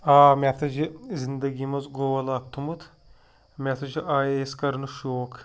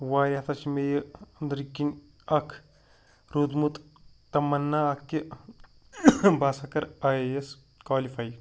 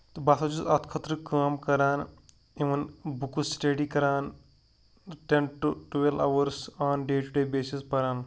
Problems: none marked